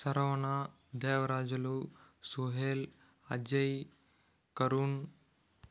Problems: none marked